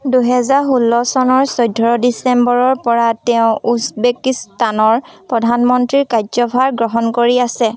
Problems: none marked